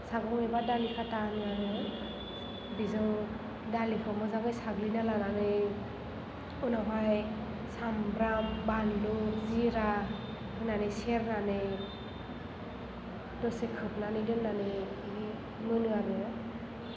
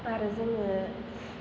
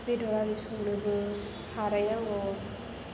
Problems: low volume